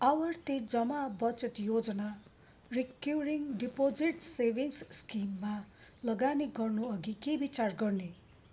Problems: none marked